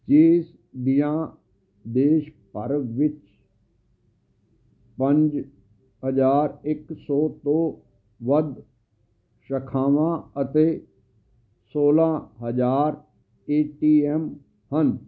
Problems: constant background noise